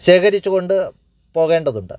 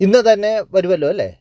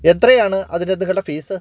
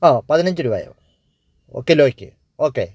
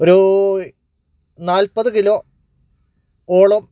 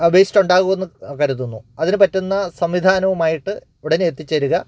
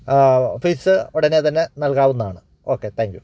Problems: none marked